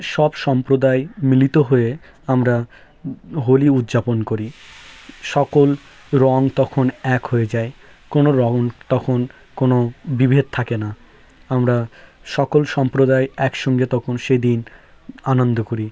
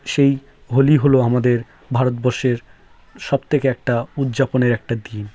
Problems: background sounds at intervals